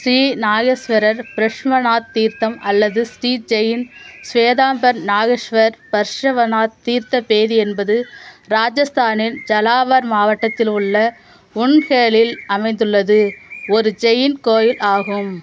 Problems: constant background noise, background conversations at intervals